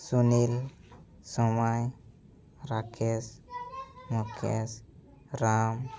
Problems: background conversations at intervals